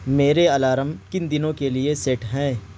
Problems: constant background noise